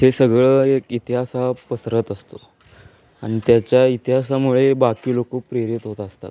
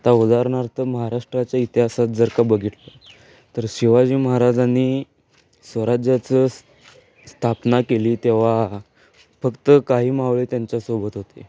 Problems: none marked